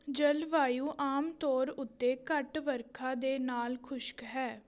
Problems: background conversations at intervals